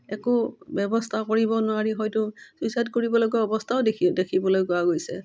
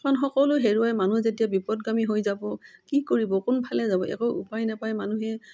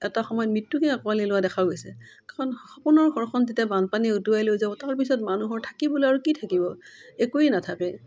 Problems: none marked